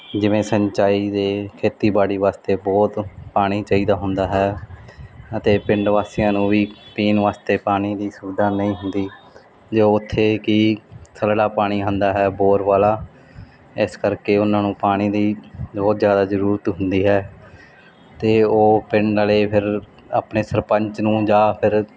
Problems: background sounds at intervals